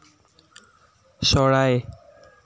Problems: constant background noise